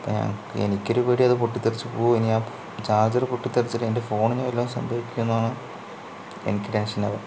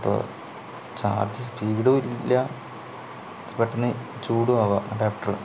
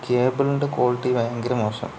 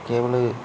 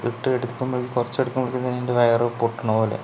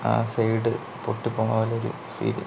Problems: low volume